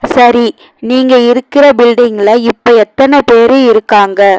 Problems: none marked